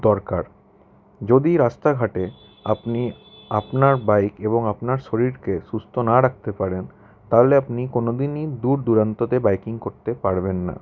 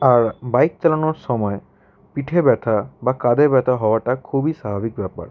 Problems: constant background noise